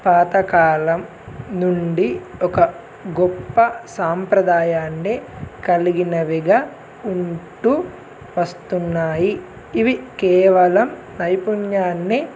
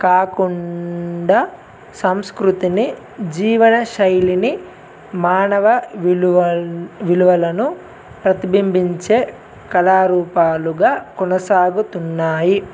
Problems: none marked